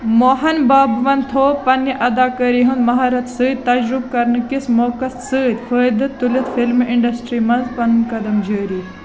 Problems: constant background noise, continuous background conversations